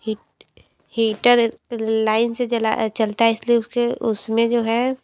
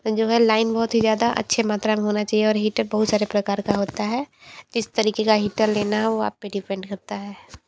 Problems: constant background noise, background conversations at intervals